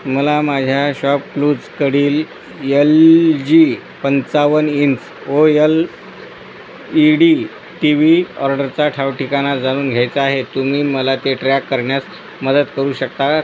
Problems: constant background noise